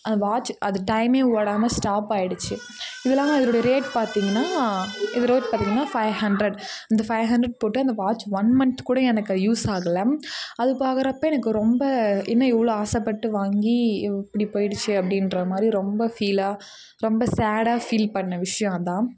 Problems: background conversations at intervals